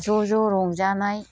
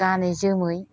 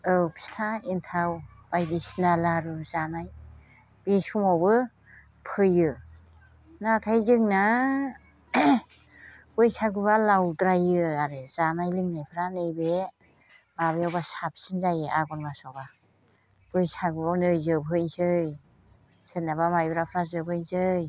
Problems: constant background noise